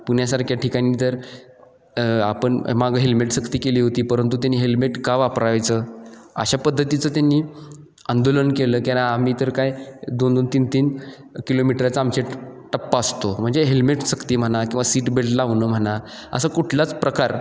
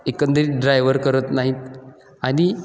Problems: none marked